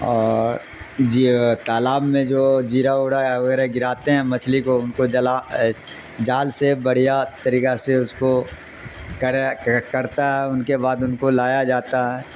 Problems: constant background noise